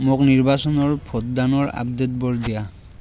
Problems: constant background noise